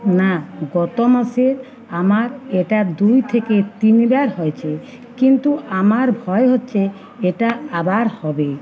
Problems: continuous background conversations